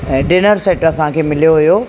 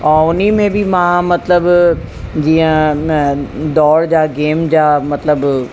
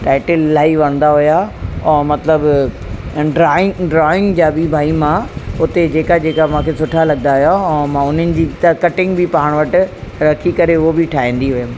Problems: constant background noise